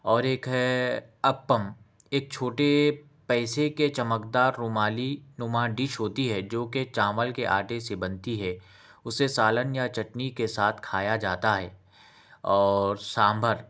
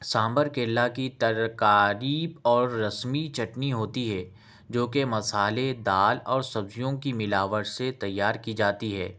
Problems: none marked